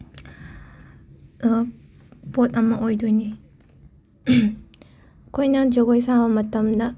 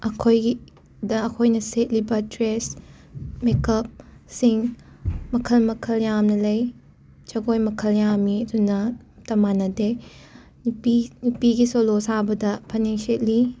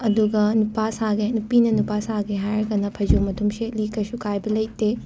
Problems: background sounds at intervals, background conversations at intervals